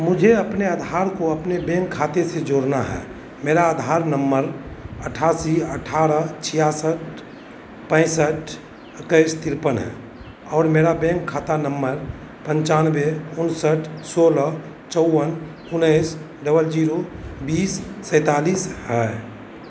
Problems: constant background noise